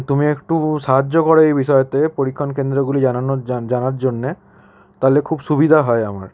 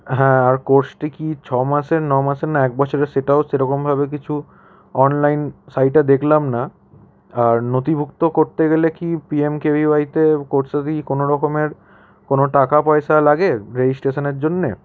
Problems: constant background noise